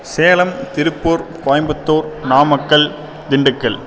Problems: none marked